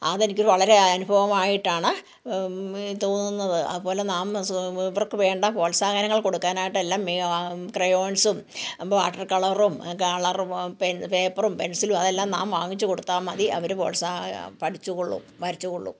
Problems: background conversations at intervals